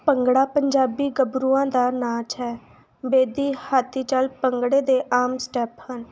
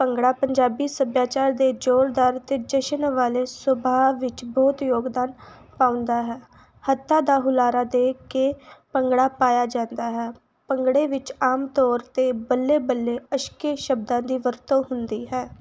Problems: background sounds at intervals